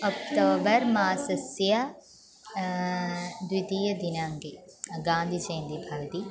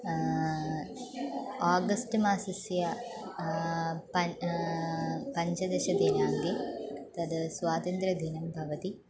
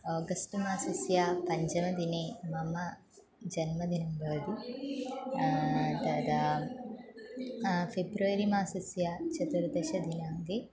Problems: constant background noise